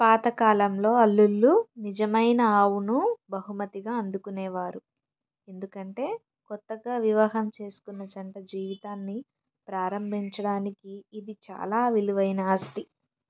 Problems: none marked